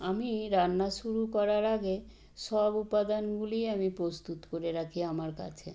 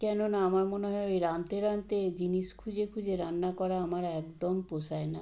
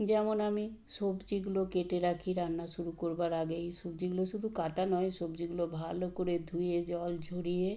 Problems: none marked